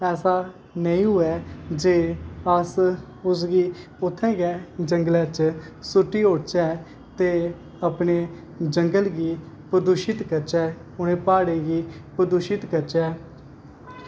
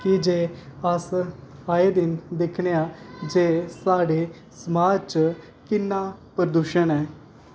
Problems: constant background noise